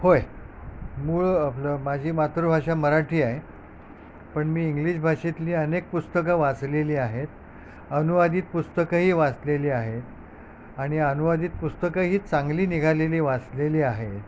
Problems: none marked